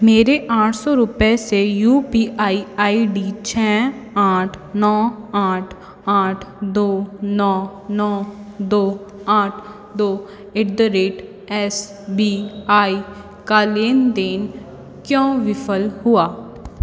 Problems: constant background noise, background conversations at intervals